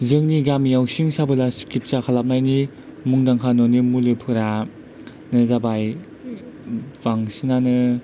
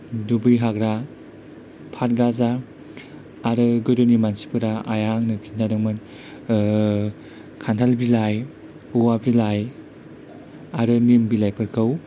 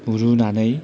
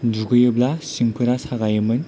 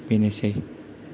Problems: none marked